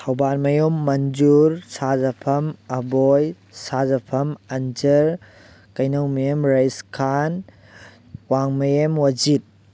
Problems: none marked